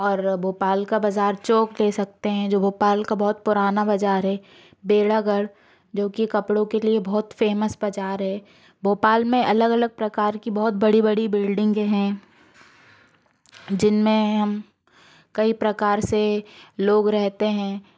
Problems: background sounds at intervals